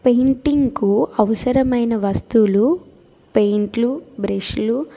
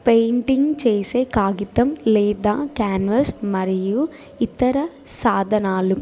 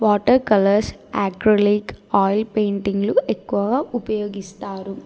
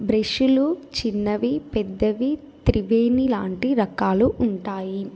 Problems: none marked